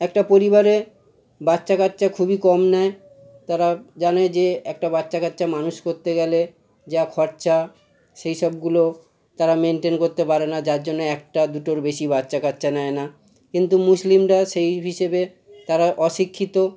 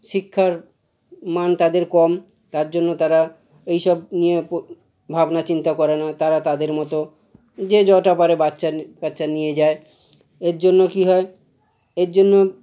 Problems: constant background noise, background conversations at intervals